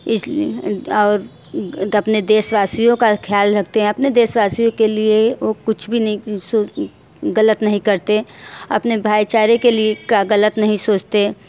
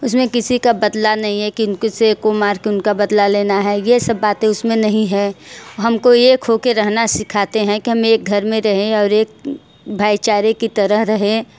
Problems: constant background noise, background conversations at intervals, echo